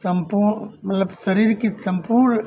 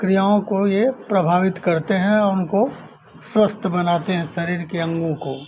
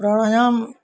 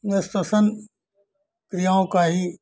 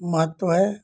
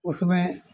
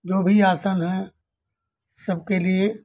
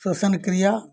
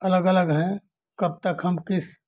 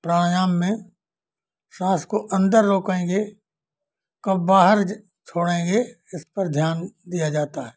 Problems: none marked